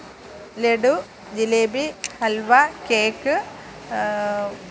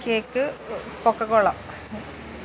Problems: constant background noise